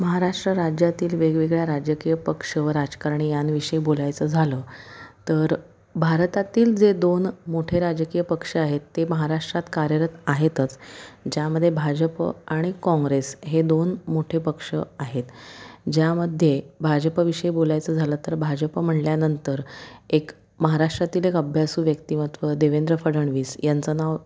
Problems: background sounds at intervals